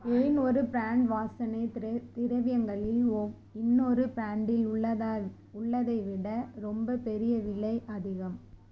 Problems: constant background noise, low volume